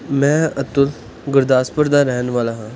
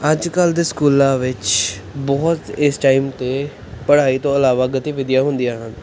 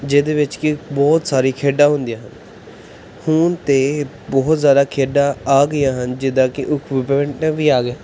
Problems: background conversations at intervals